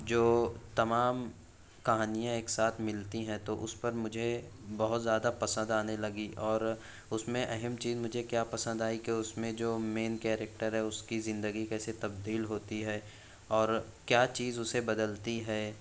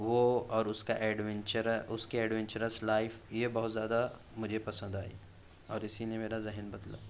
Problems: none marked